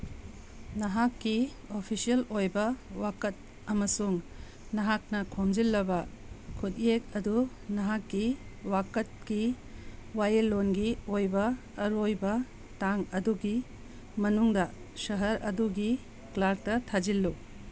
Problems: background sounds at intervals